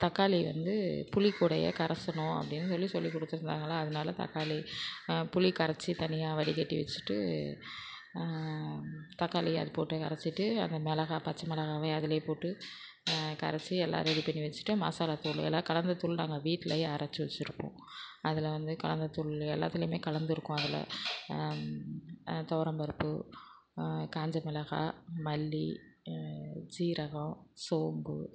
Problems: constant background noise